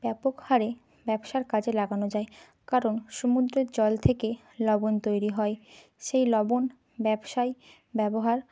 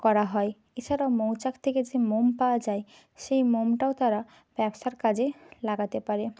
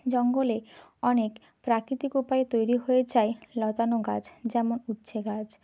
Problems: constant background noise